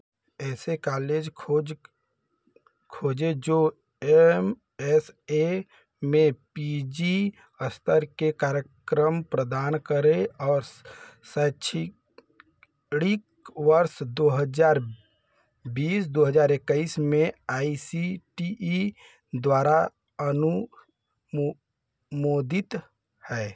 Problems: background sounds at intervals